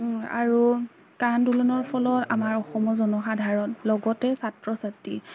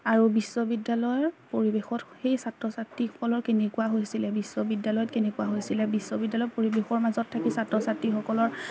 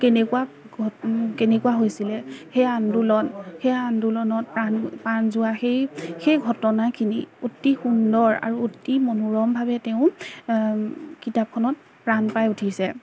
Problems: background sounds at intervals, background conversations at intervals